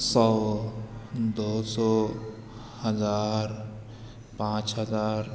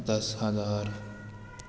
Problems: constant background noise, echo